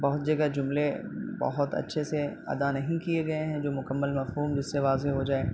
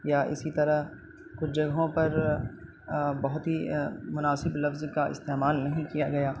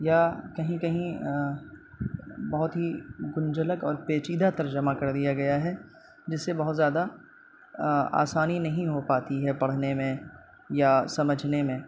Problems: constant background noise